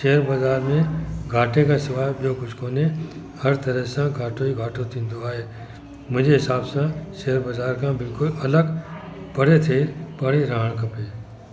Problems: constant background noise